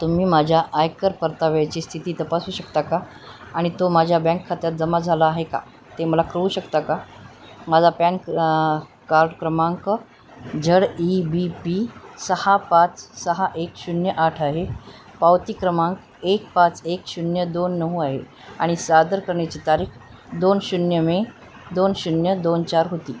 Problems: constant background noise, low volume